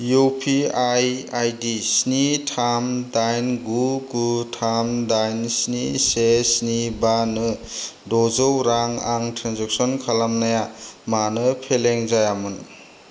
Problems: low volume